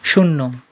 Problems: constant background noise, background conversations at intervals